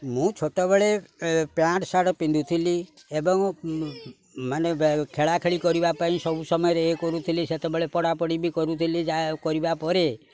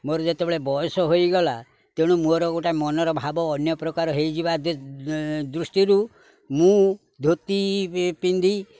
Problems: background sounds at intervals